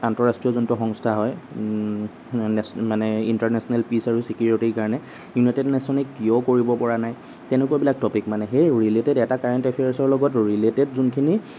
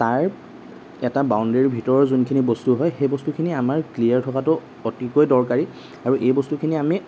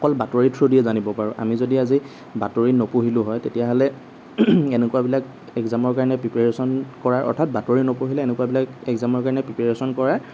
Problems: none marked